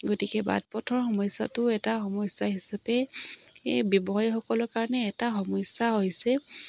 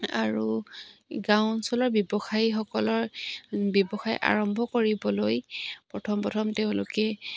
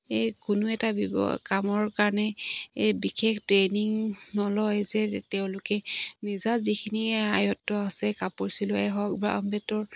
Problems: none marked